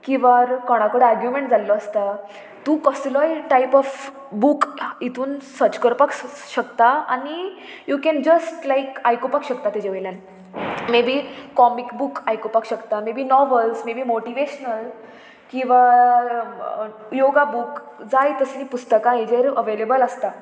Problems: constant background noise